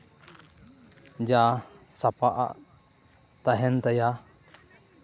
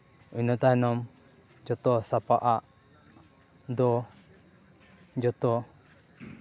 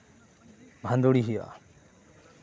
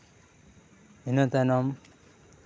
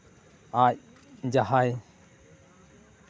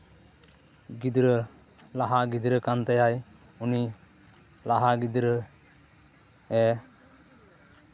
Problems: none marked